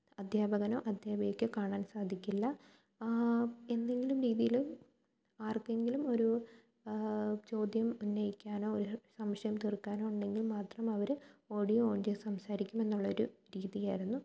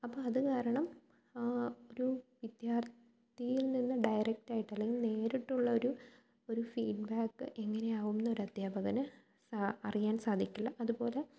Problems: low volume